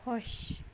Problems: background sounds at intervals, low volume